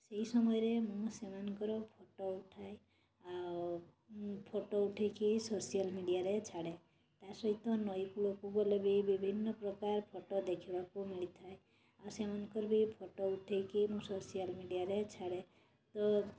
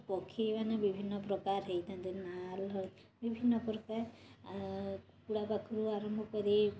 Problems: constant background noise